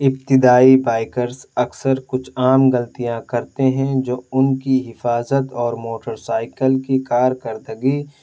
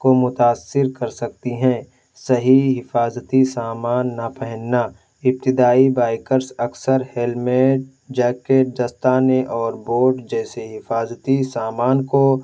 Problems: none marked